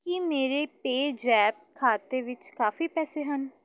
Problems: none marked